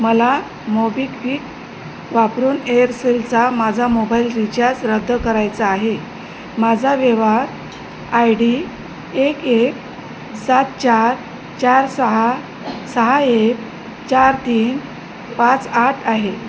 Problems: constant background noise